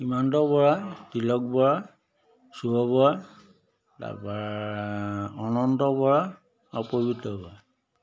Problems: background sounds at intervals